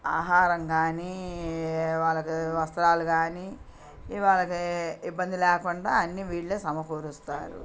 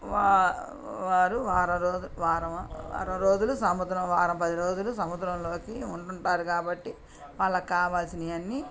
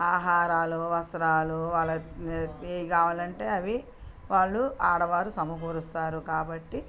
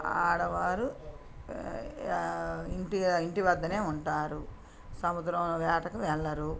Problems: background conversations at intervals